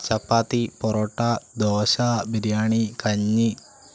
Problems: none marked